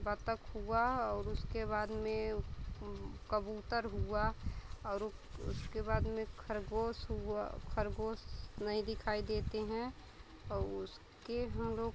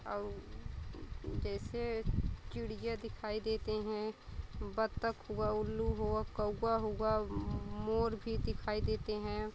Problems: constant background noise, continuous background conversations